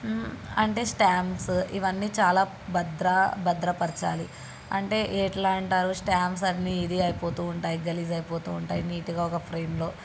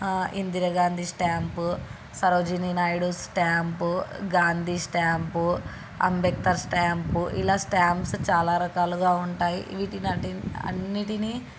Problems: constant background noise